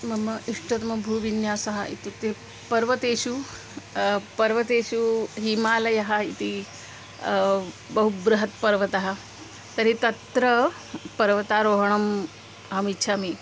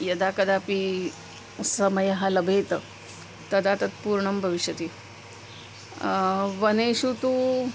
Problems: constant background noise